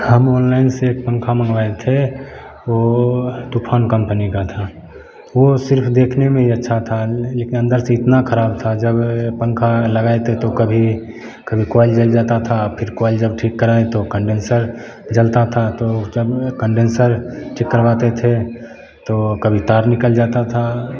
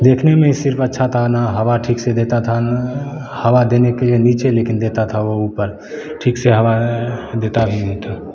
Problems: constant background noise